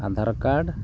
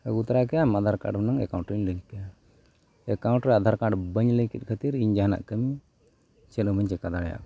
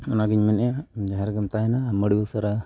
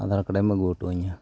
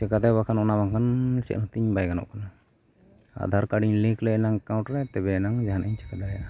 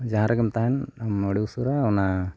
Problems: background sounds at intervals